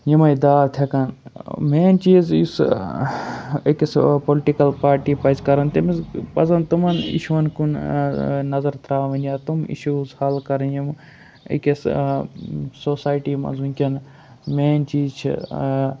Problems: none marked